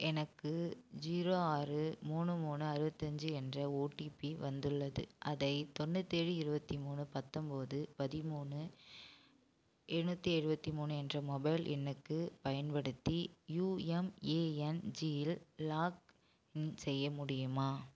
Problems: constant background noise, low volume